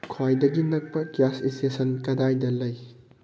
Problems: background sounds at intervals